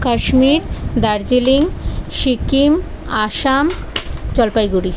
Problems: constant background noise, background conversations at intervals